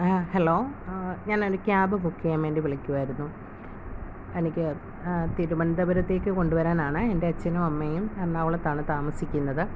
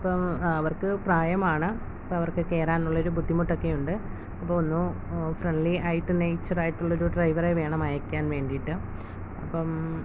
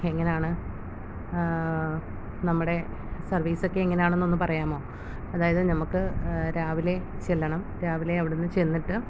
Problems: none marked